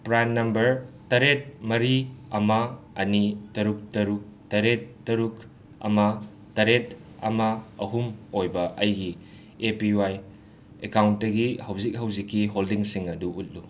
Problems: constant background noise